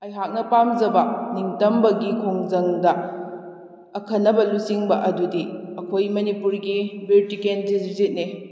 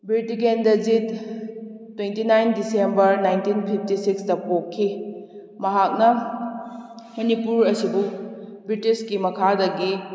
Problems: echo